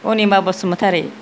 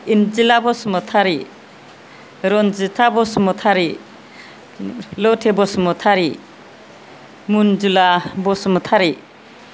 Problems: none marked